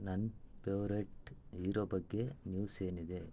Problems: low volume